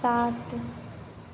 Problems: constant background noise